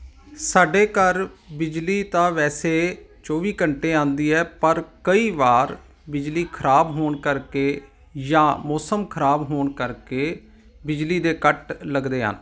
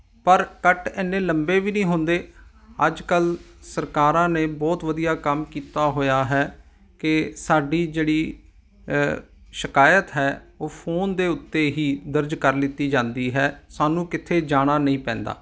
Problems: background sounds at intervals